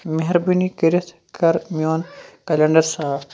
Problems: background sounds at intervals